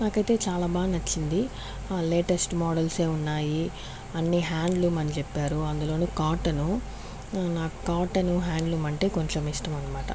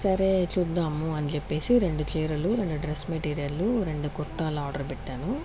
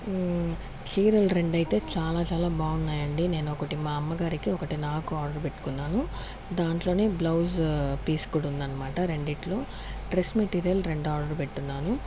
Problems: constant background noise